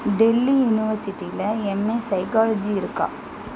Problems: constant background noise